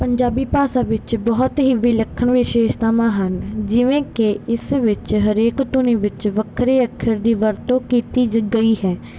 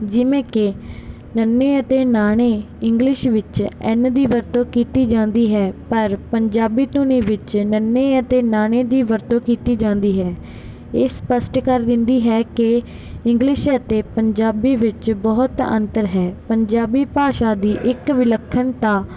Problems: background sounds at intervals